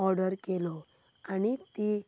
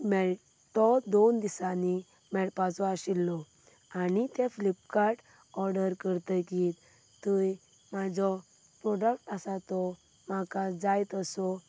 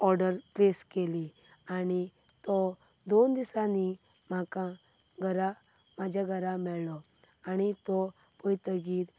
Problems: none marked